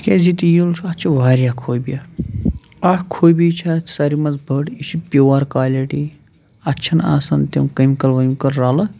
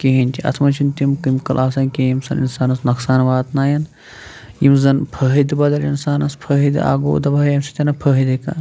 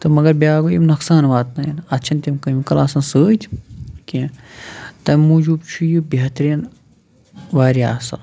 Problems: background sounds at intervals